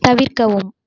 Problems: none marked